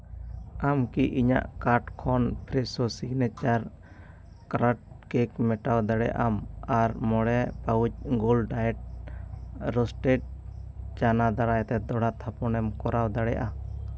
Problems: constant background noise